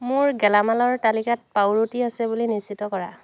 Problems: constant background noise